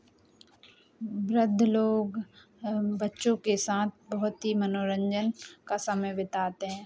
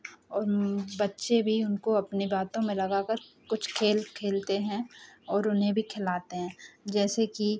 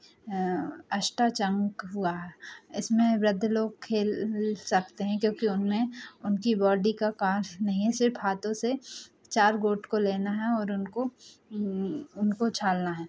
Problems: none marked